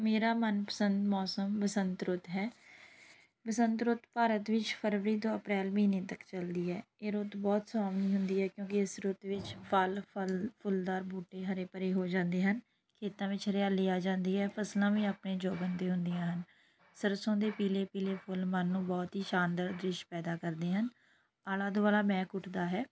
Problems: background sounds at intervals